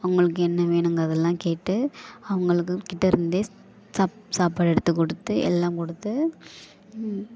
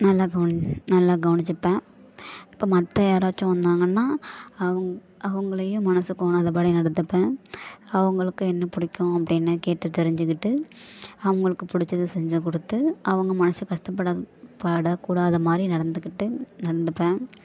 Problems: none marked